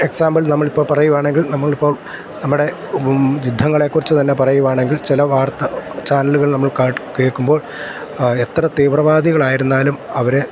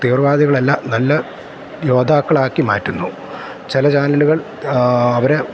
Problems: constant background noise